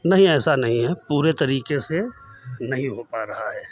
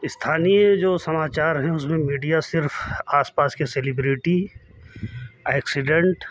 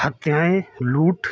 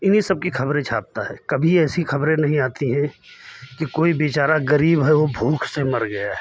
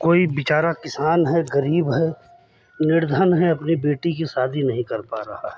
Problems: none marked